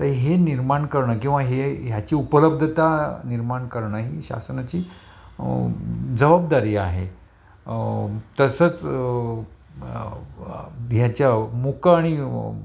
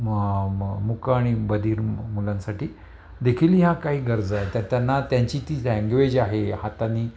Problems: none marked